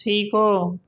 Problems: constant background noise